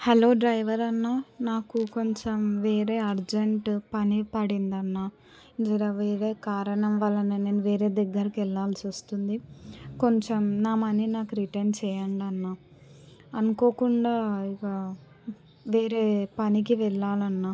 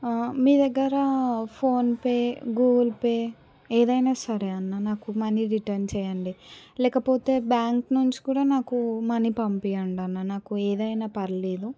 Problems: background conversations at intervals